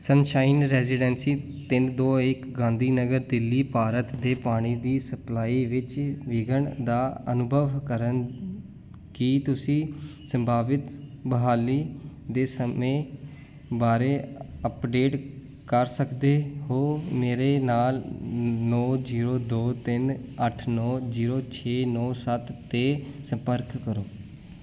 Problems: none marked